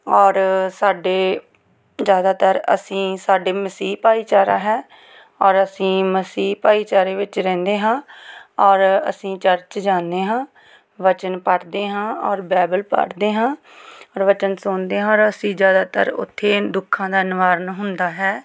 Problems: background sounds at intervals